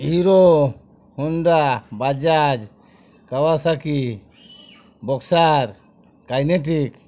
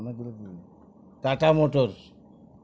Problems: background sounds at intervals, background conversations at intervals